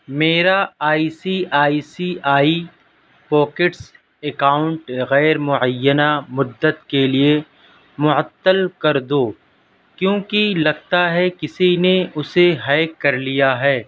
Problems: none marked